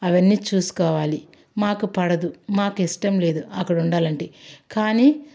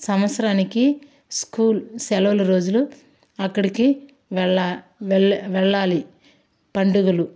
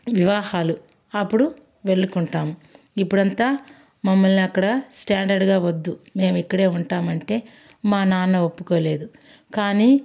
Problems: background sounds at intervals